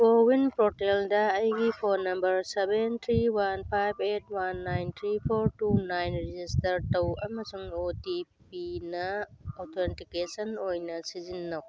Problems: background sounds at intervals